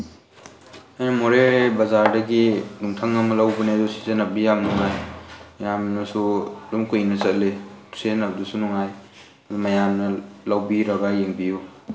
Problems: constant background noise